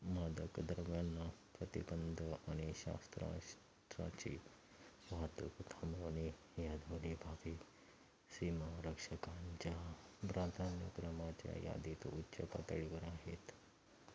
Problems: constant background noise, low volume